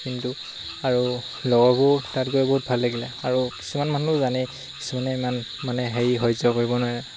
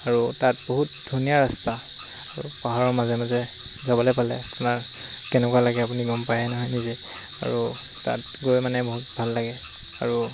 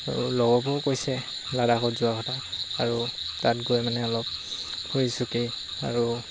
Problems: constant background noise